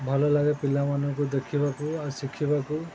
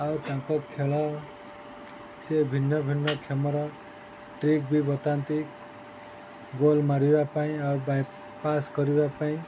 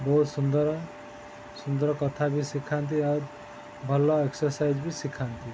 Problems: constant background noise